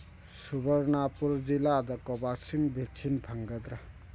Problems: background sounds at intervals